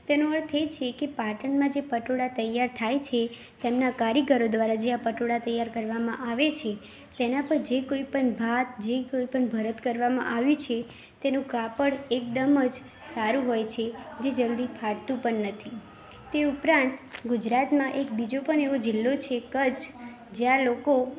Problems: constant background noise, background conversations at intervals